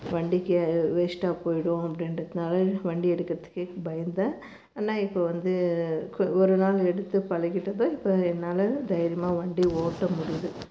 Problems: none marked